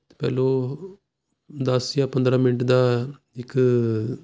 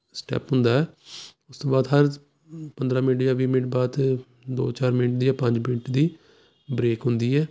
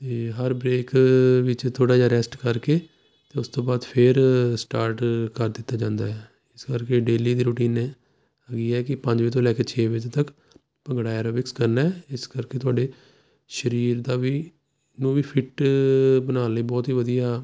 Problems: none marked